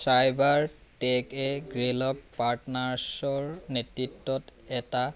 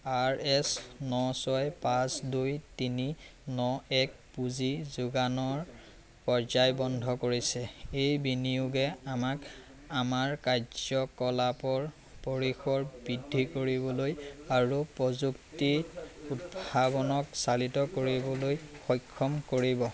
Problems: constant background noise, background conversations at intervals